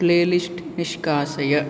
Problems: low volume